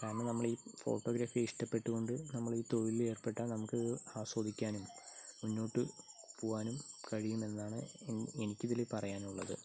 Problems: low volume